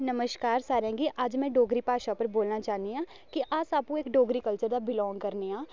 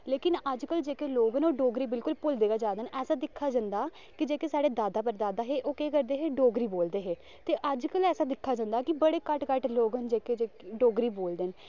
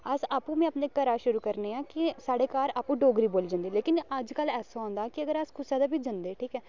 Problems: none marked